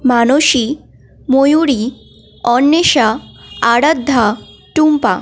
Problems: constant background noise